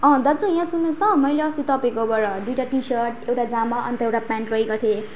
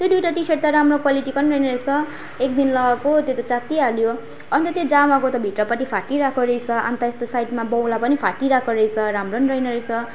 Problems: constant background noise